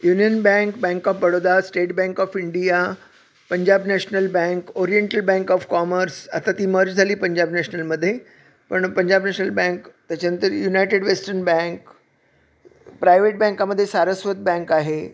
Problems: none marked